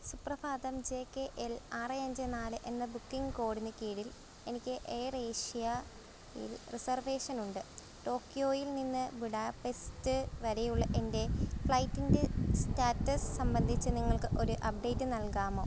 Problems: none marked